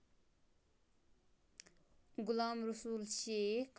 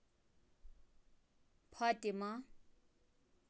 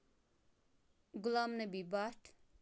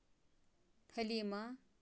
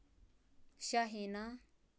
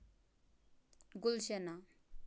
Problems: background sounds at intervals